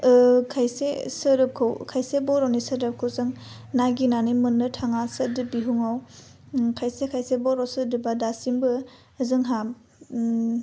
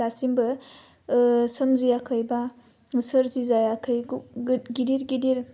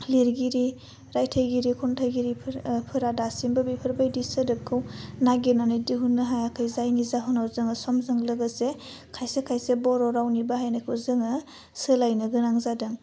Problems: none marked